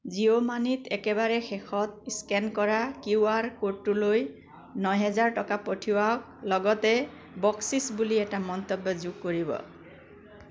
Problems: none marked